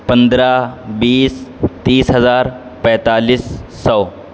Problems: constant background noise